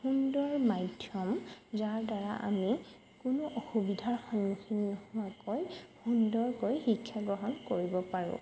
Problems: none marked